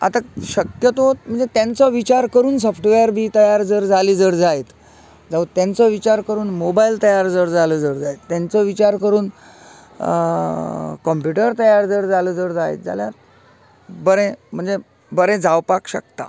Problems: constant background noise